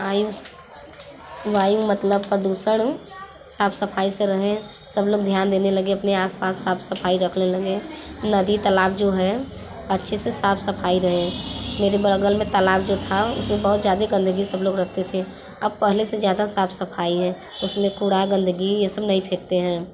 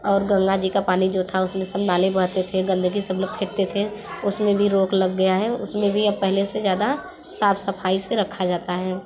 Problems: constant background noise, background conversations at intervals